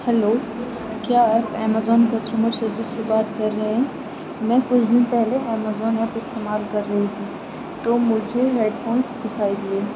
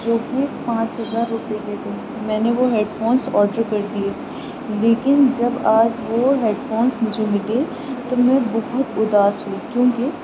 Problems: constant background noise